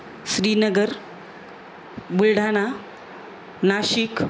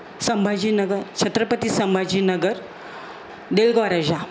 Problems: constant background noise